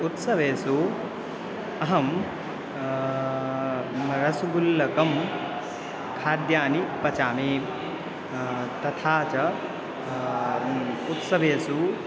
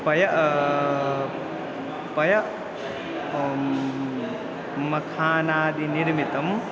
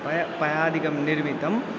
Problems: constant background noise